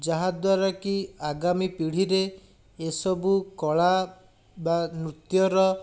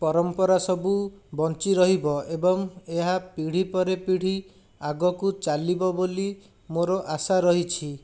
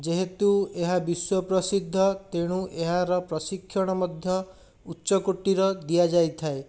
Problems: none marked